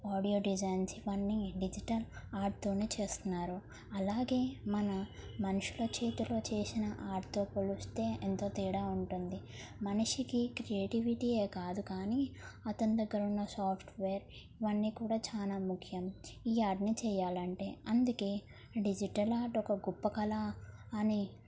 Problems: none marked